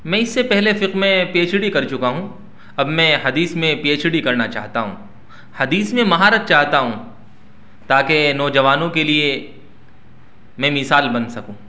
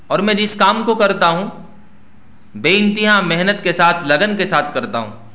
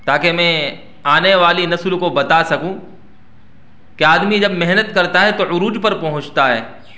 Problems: none marked